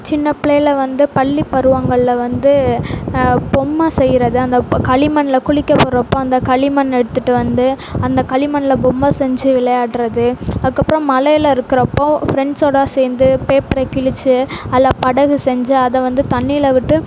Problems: none marked